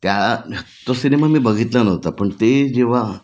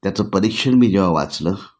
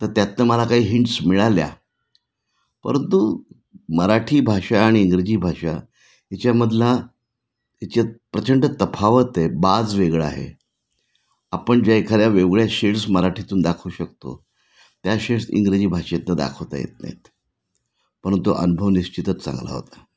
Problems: none marked